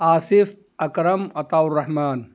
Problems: none marked